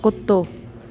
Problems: constant background noise, echo